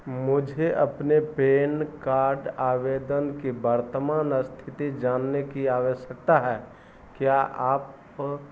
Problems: none marked